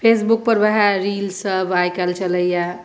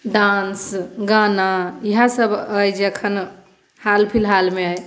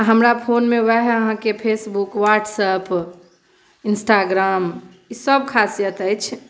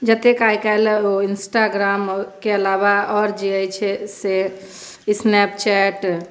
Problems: none marked